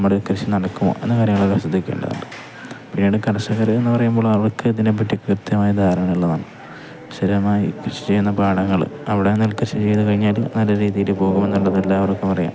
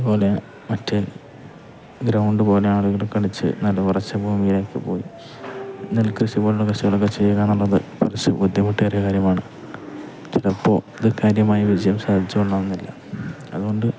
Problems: background sounds at intervals